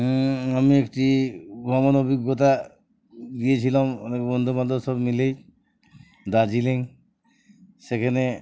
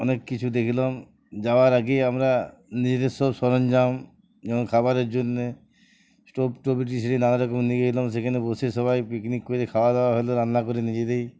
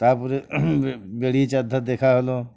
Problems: none marked